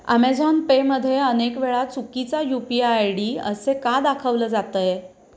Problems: constant background noise